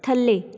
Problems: none marked